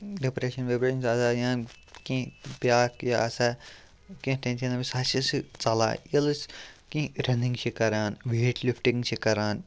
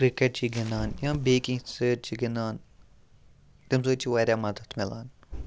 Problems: background sounds at intervals, low volume